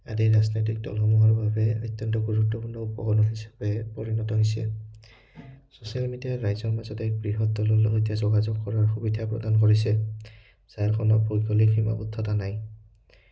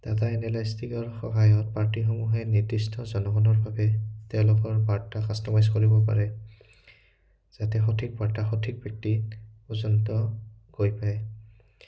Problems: background sounds at intervals